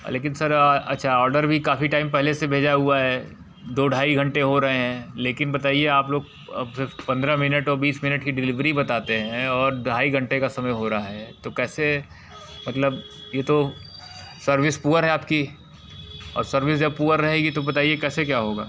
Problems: none marked